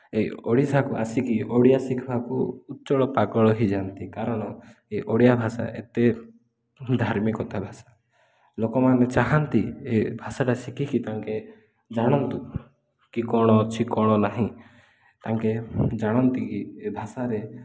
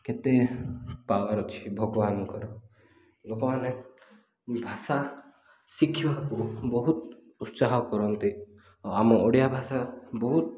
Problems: none marked